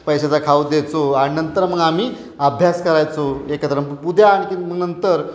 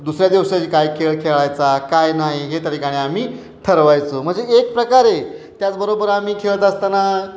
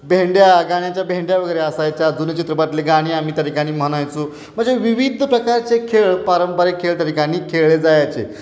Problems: none marked